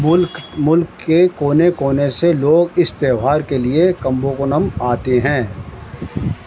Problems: constant background noise